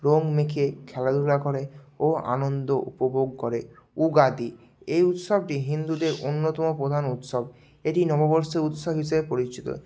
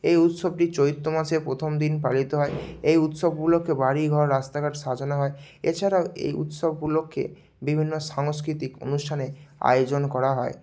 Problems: none marked